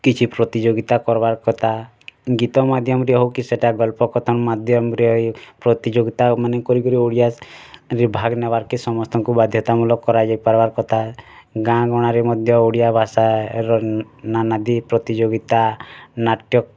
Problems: none marked